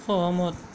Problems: constant background noise